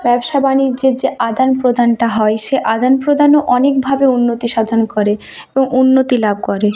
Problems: constant background noise, continuous background conversations